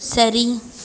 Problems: constant background noise